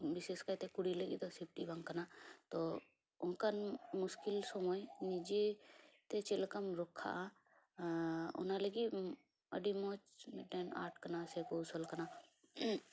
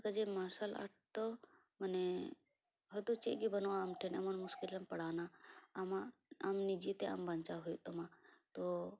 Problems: background sounds at intervals, low volume